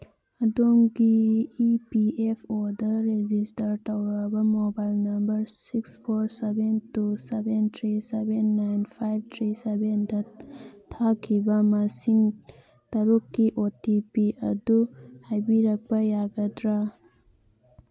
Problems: background sounds at intervals